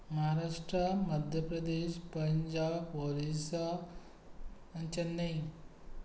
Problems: background sounds at intervals